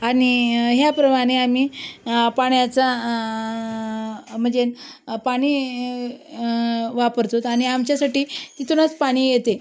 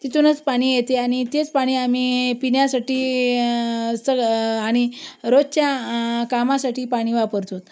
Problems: none marked